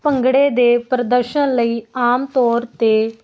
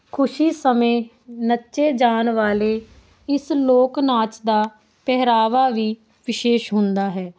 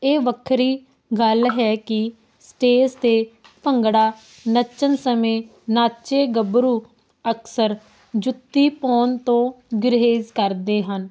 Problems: constant background noise